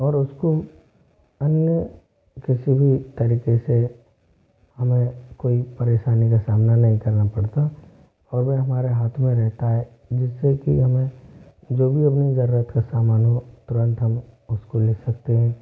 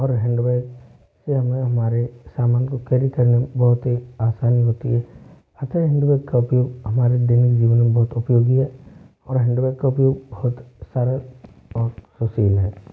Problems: constant background noise